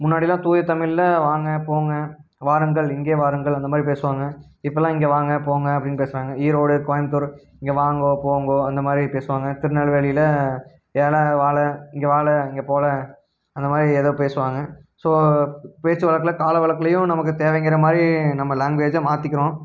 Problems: none marked